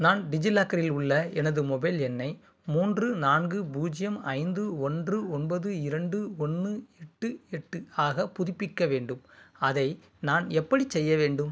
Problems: constant background noise